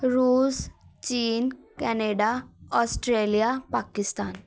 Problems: background conversations at intervals